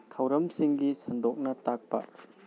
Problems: low volume